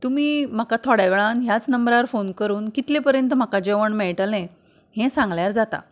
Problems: background conversations at intervals